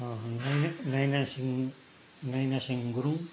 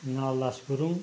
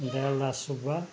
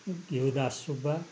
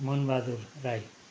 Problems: background sounds at intervals